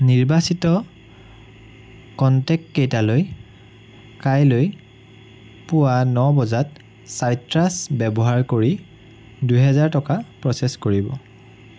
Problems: none marked